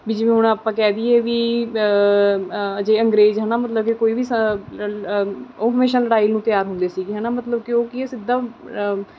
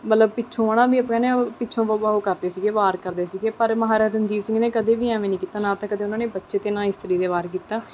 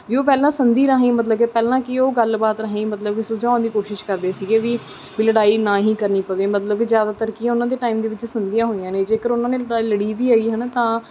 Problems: none marked